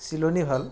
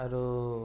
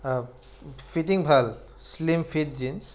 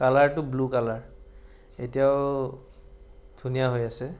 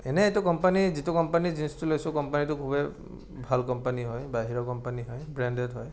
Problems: none marked